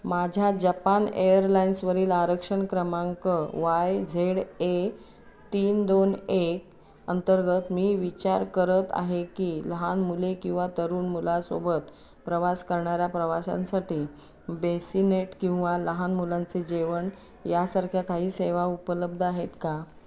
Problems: none marked